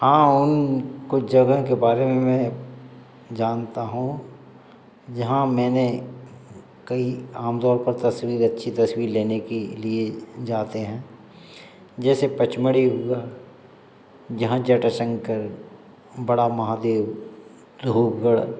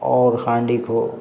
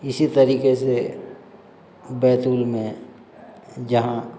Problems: constant background noise